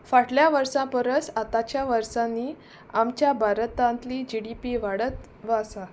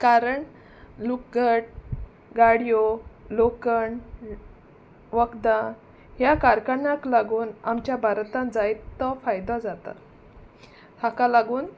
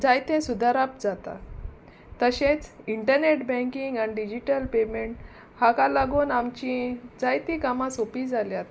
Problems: constant background noise